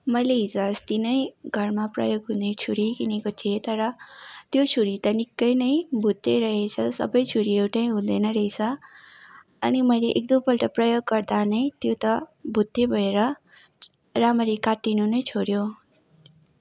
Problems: none marked